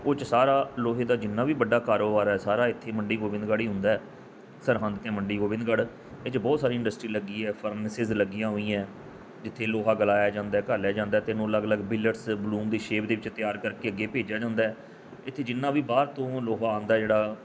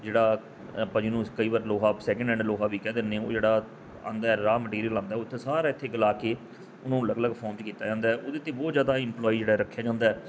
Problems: background sounds at intervals